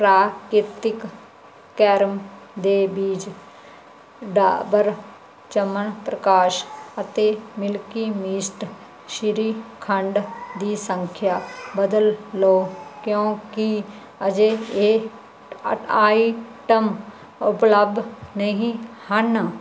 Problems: none marked